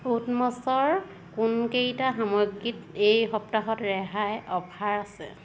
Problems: constant background noise